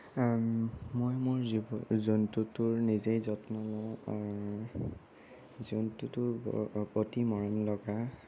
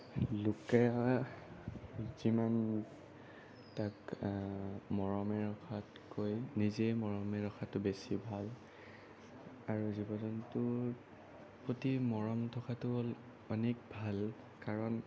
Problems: none marked